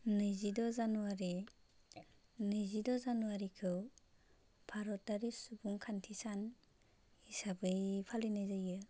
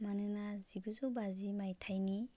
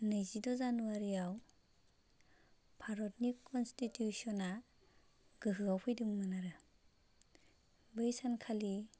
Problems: constant background noise